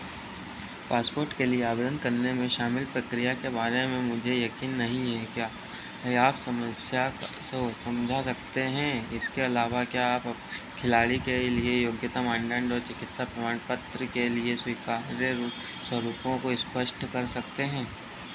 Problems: none marked